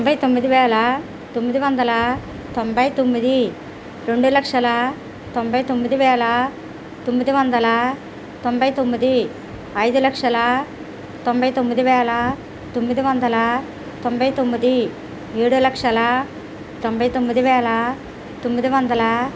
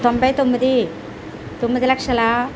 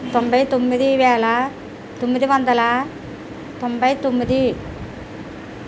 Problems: constant background noise